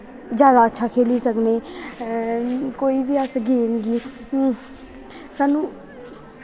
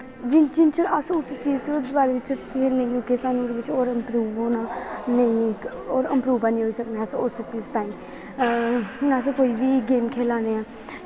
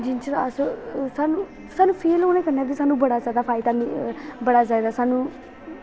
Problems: constant background noise